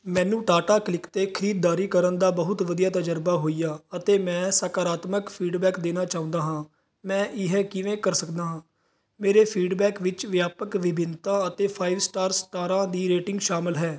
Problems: background sounds at intervals